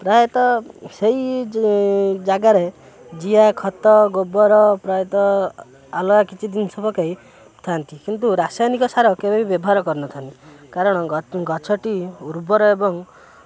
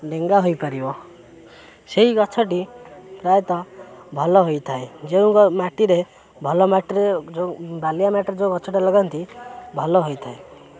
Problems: constant background noise, continuous background conversations